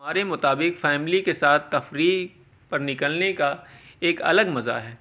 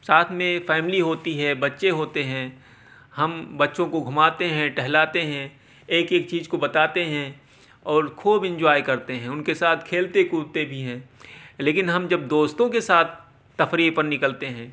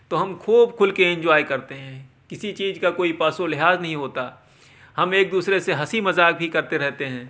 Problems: background sounds at intervals